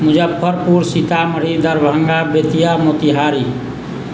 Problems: none marked